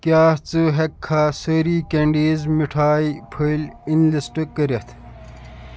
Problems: constant background noise